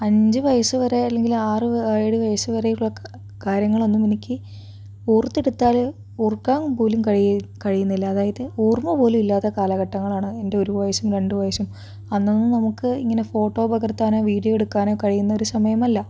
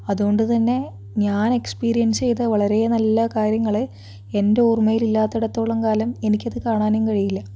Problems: background sounds at intervals